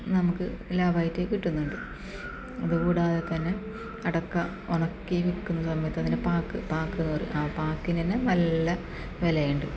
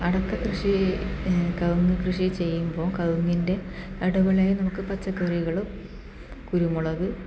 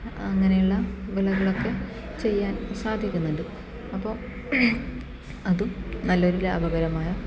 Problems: constant background noise, low volume